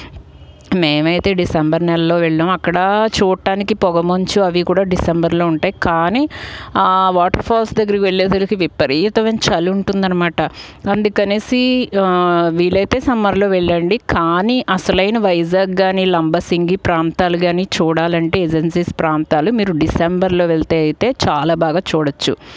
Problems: background sounds at intervals